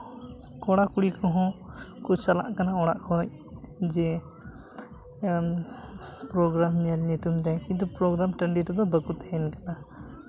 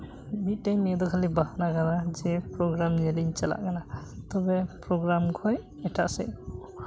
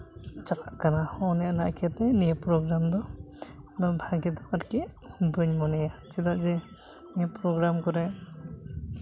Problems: none marked